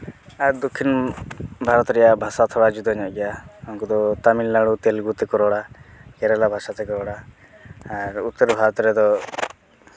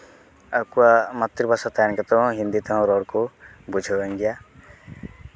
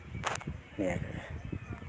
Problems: constant background noise, background conversations at intervals